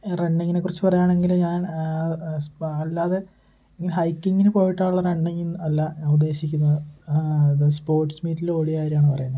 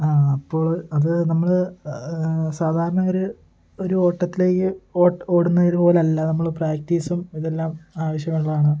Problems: constant background noise, low volume